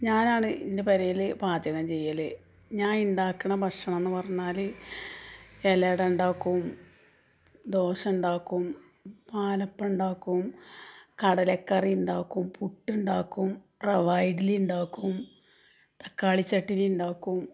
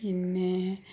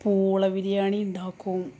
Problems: none marked